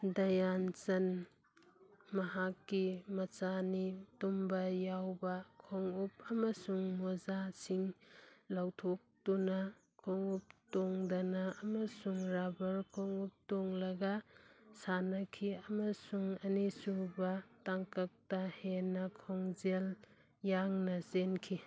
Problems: none marked